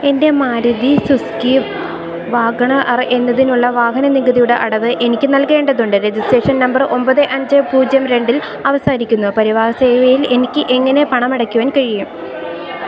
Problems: constant background noise